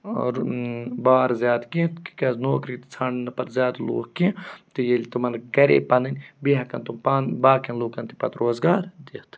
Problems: none marked